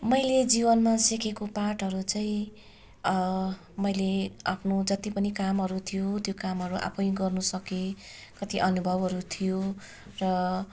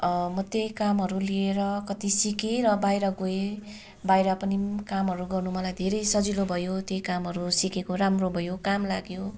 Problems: continuous background conversations